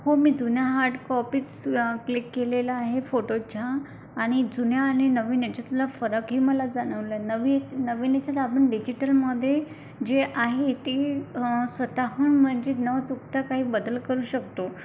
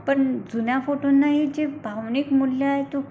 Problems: none marked